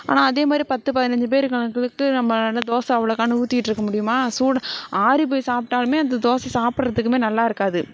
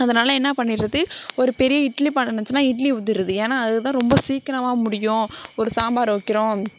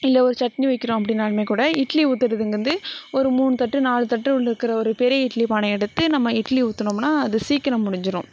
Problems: none marked